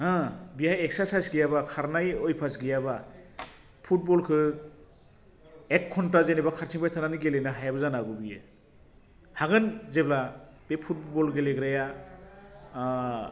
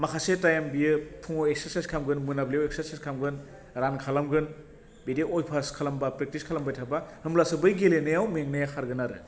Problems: constant background noise